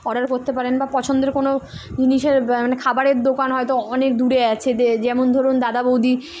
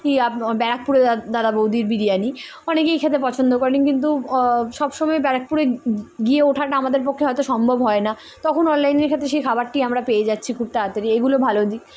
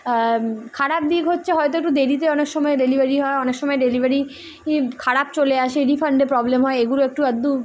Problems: none marked